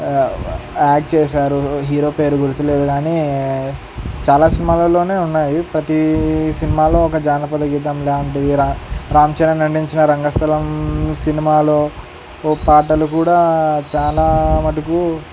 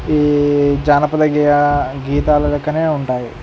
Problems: constant background noise